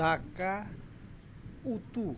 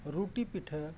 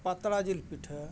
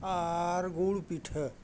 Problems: none marked